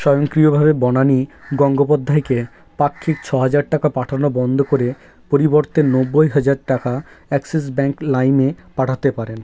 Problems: none marked